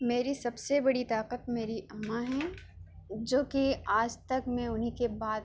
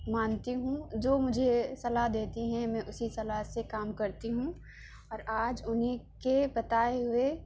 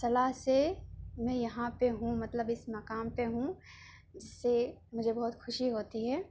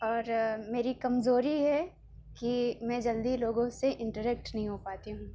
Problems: none marked